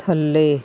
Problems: none marked